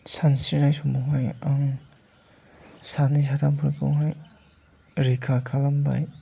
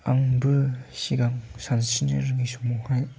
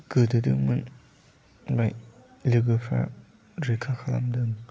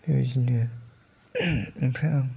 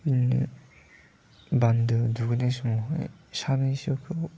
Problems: none marked